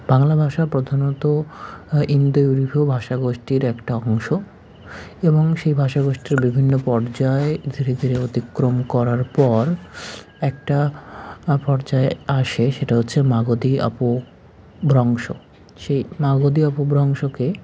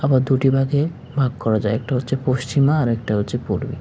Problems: none marked